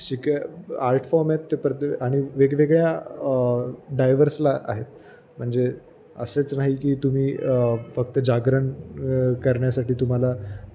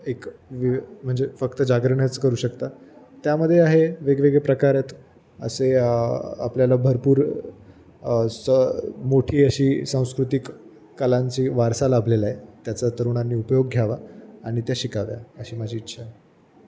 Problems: none marked